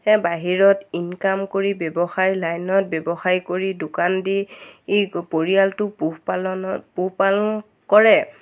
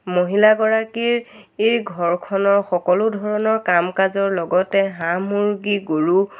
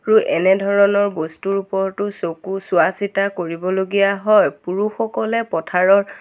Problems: none marked